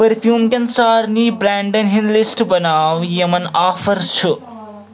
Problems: continuous background conversations